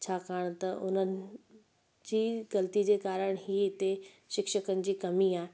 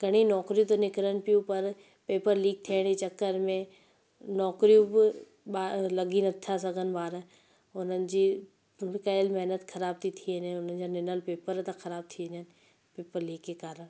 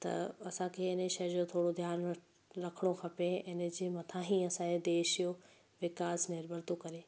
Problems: constant background noise, echo